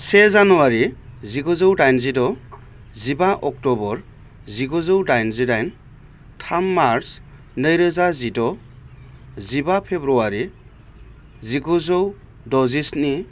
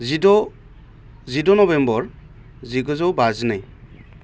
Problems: none marked